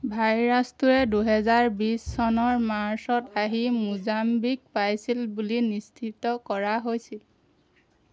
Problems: none marked